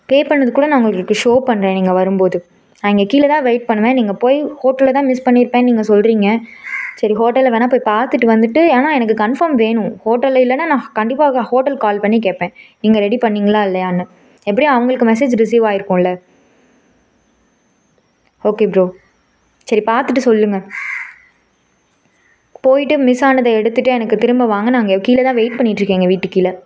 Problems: none marked